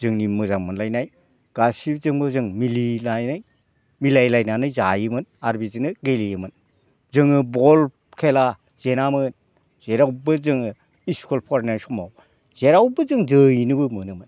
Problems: background sounds at intervals